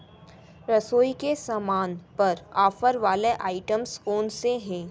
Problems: constant background noise, continuous background conversations